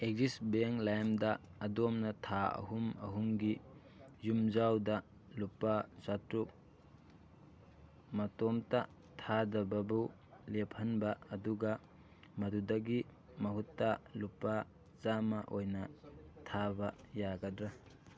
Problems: background sounds at intervals, continuous background conversations